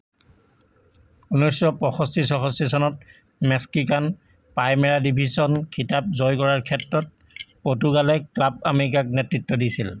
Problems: constant background noise